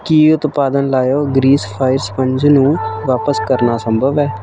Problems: constant background noise